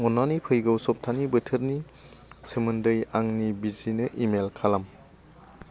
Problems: constant background noise